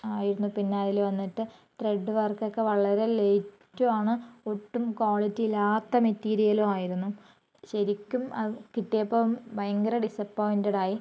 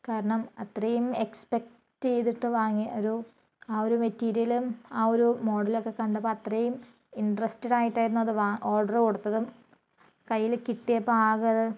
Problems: low volume